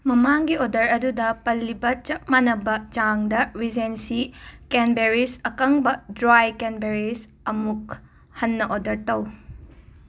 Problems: none marked